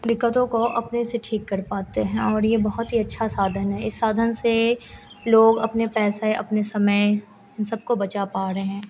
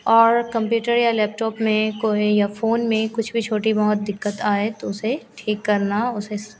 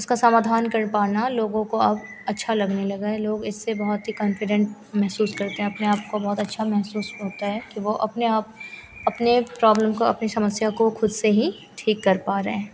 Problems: constant background noise